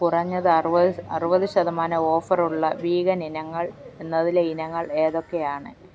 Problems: background sounds at intervals